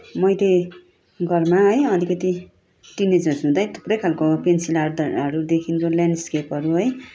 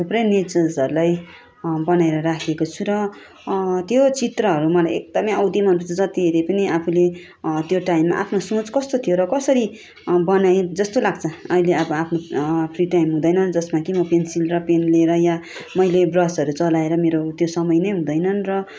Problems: none marked